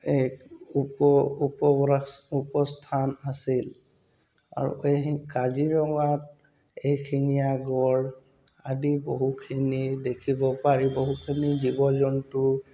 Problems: background sounds at intervals